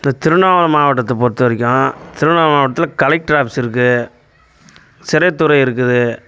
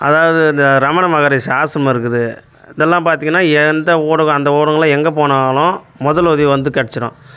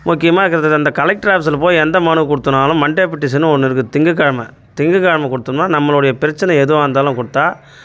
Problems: background sounds at intervals